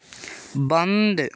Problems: background sounds at intervals